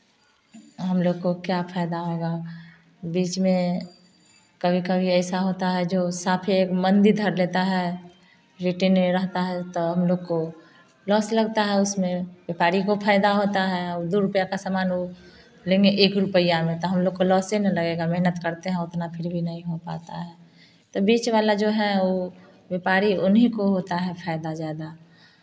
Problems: none marked